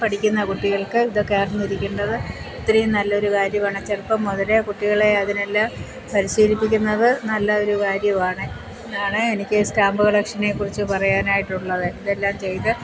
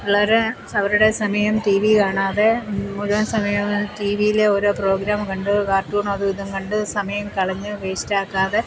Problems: constant background noise